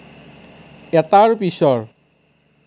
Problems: none marked